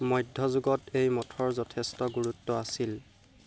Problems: constant background noise